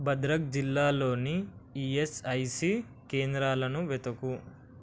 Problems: constant background noise